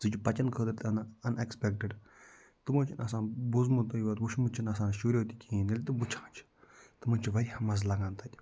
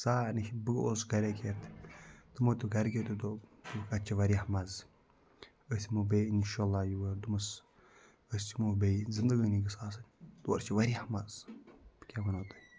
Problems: low volume